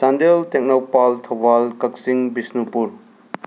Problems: none marked